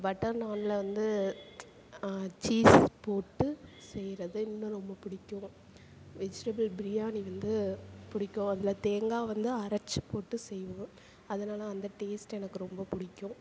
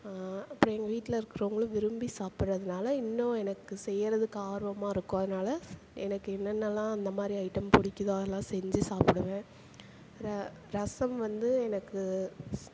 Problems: constant background noise